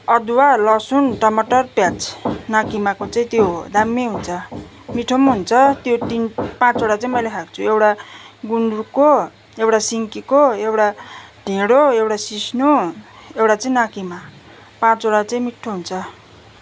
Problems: background sounds at intervals